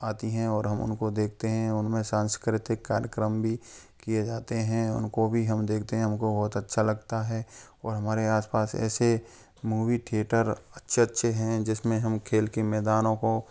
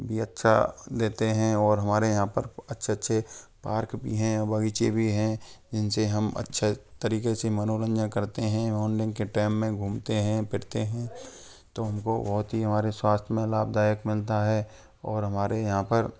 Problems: none marked